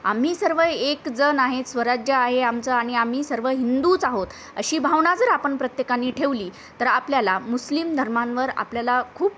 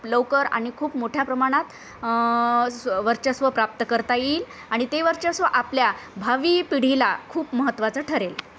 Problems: constant background noise